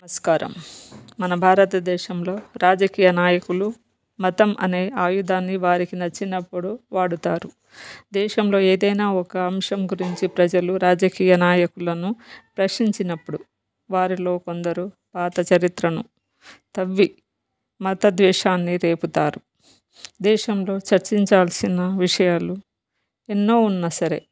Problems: background conversations at intervals